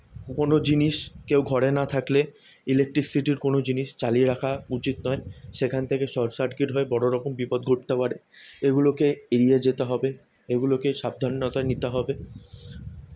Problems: none marked